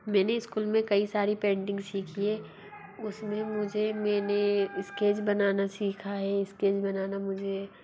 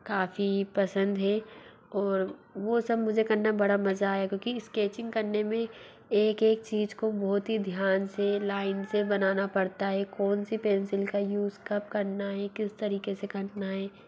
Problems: low volume